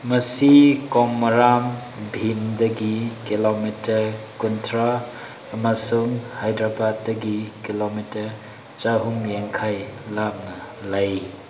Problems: background sounds at intervals